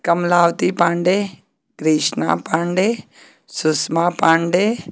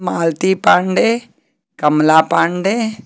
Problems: constant background noise